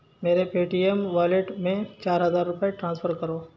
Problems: constant background noise, low volume